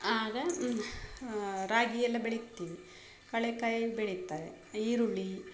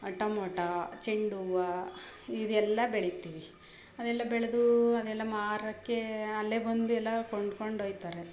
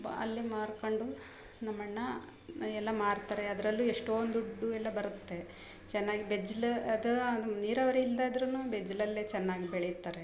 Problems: none marked